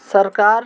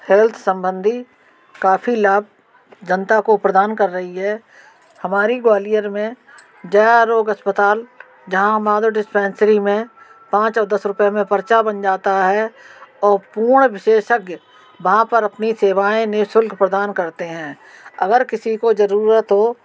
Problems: constant background noise